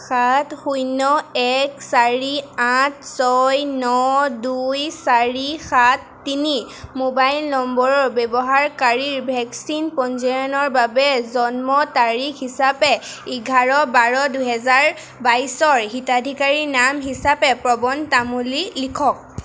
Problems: constant background noise